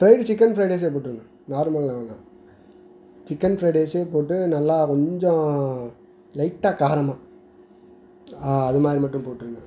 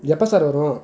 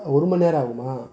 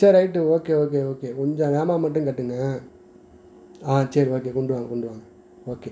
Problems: background sounds at intervals